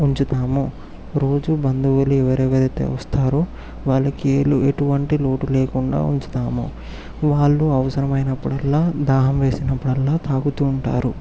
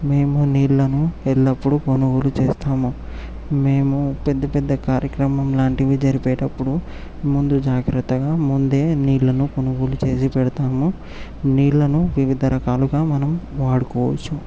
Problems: background sounds at intervals